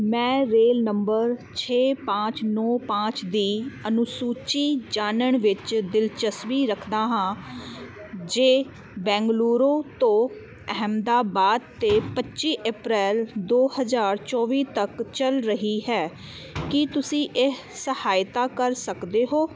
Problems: constant background noise